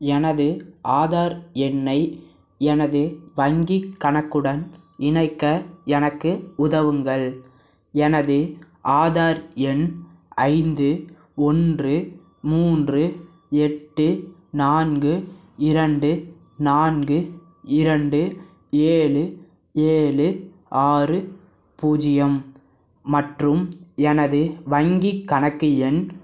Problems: none marked